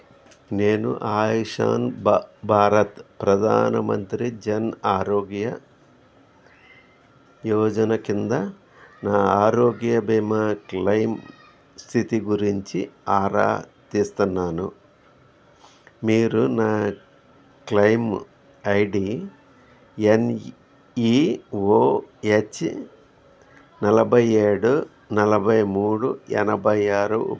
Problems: background conversations at intervals